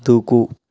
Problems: none marked